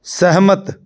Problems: none marked